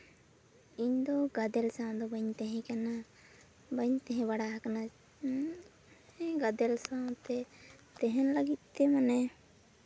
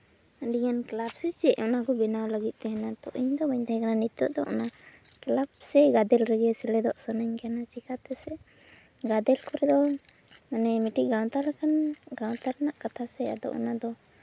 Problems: none marked